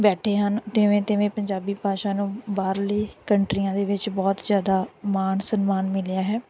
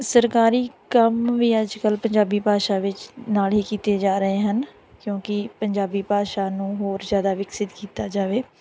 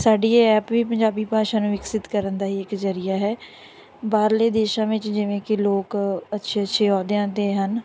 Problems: none marked